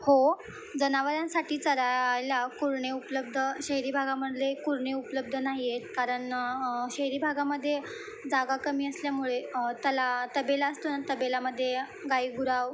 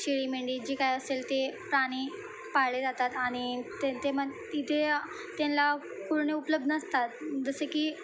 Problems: none marked